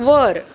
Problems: constant background noise